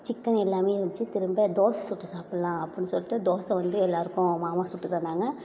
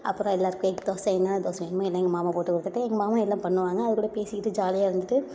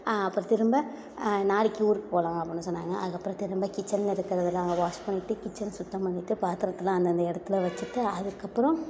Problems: low volume